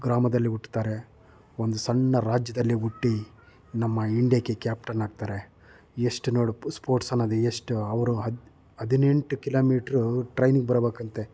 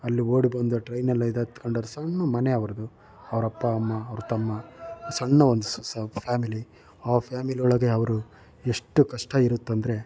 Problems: none marked